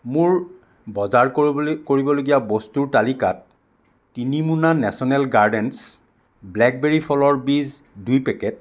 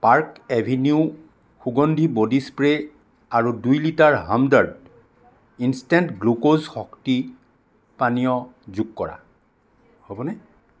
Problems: background conversations at intervals